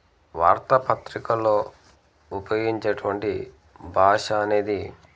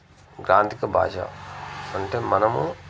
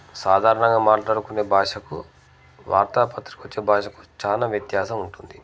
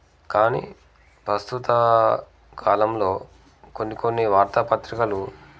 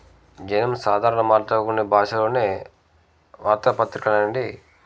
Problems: none marked